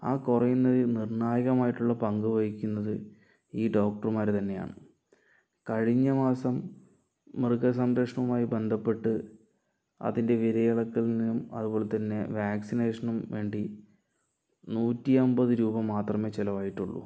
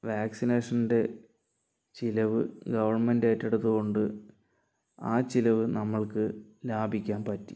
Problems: low volume